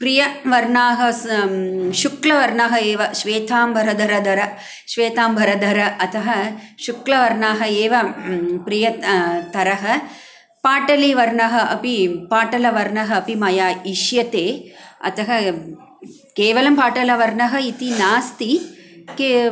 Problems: background sounds at intervals